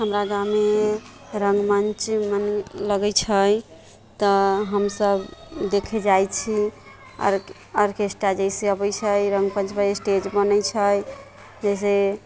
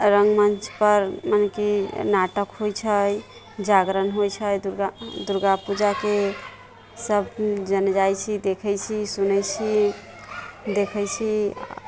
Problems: constant background noise